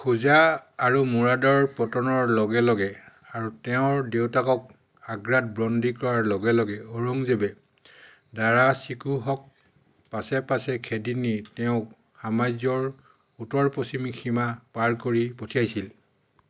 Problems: constant background noise